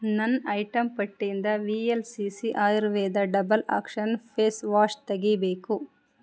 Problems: none marked